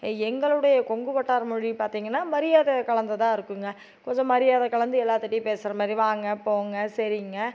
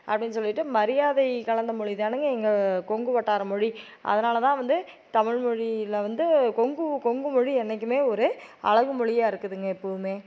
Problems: none marked